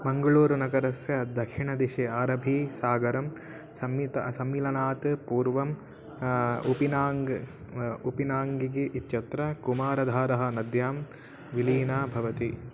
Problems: background sounds at intervals